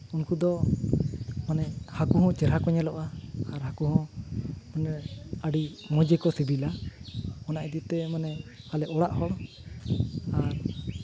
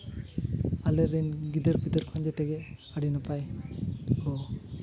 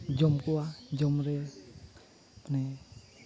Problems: constant background noise